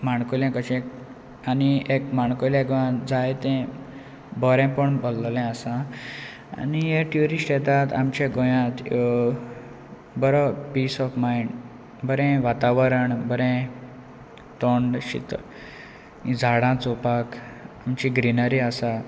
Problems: constant background noise